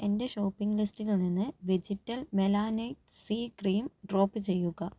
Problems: low volume